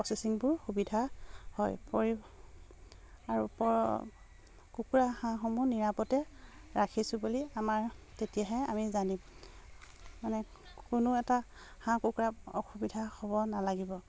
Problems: constant background noise